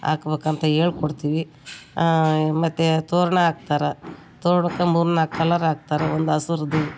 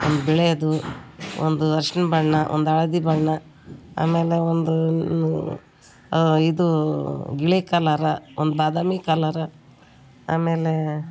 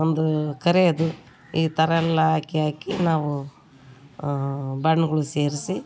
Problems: background sounds at intervals